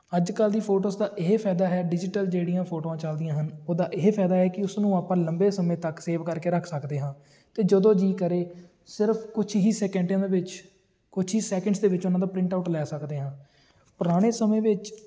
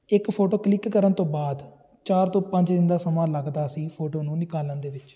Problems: none marked